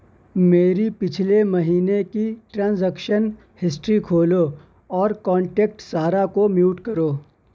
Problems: none marked